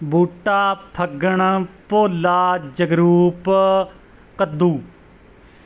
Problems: background sounds at intervals